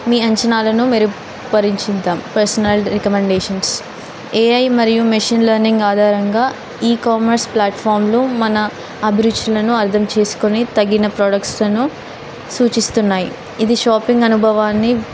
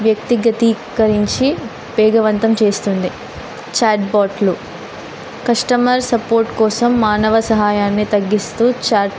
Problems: constant background noise